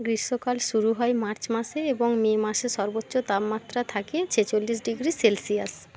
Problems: constant background noise